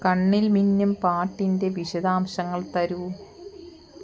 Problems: background sounds at intervals